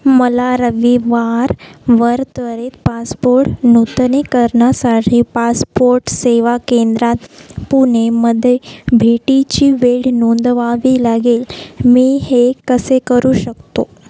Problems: none marked